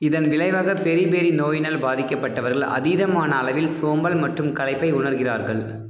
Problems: low volume